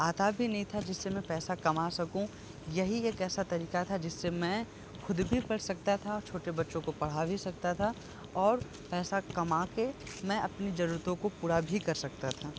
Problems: constant background noise